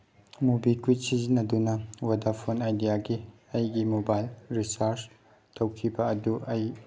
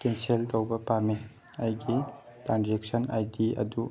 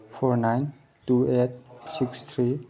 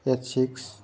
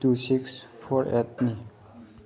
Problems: background conversations at intervals